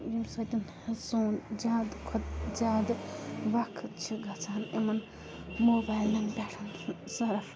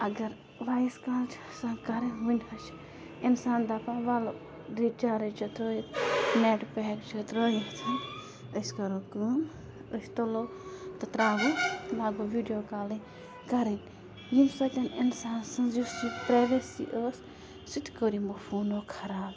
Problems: constant background noise